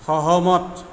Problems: background sounds at intervals